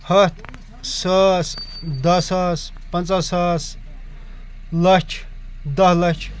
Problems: none marked